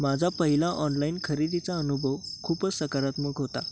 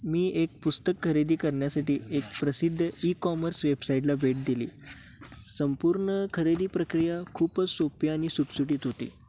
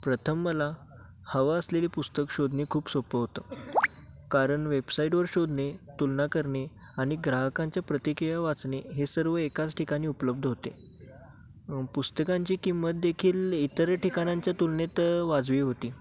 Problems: constant background noise, background conversations at intervals